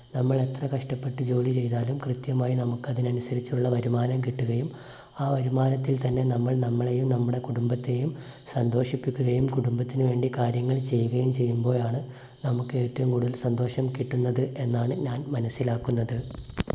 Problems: constant background noise